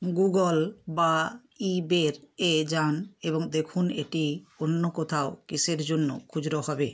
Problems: background sounds at intervals